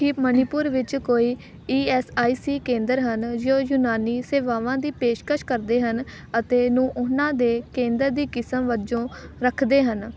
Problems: background sounds at intervals